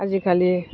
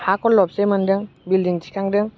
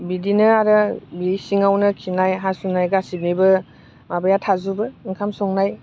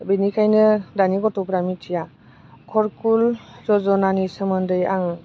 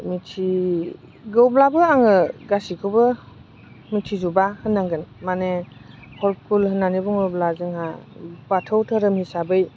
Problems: constant background noise